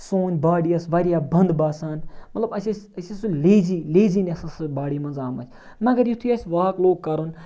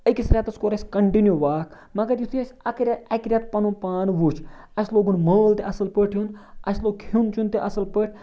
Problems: none marked